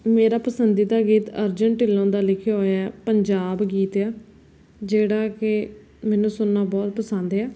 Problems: background sounds at intervals